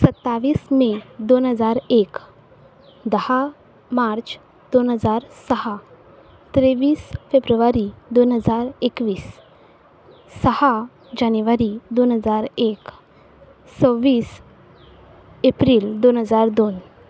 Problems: background sounds at intervals